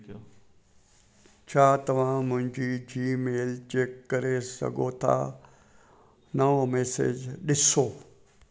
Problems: constant background noise, echo